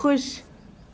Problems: none marked